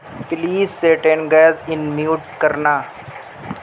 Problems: constant background noise